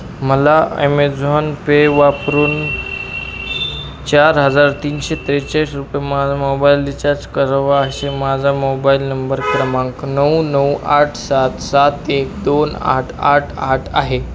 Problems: constant background noise